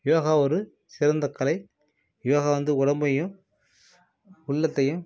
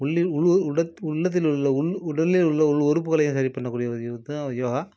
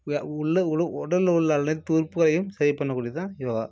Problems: none marked